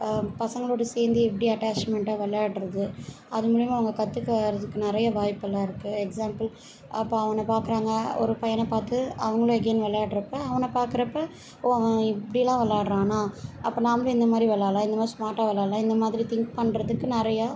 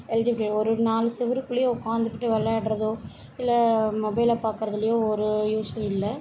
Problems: none marked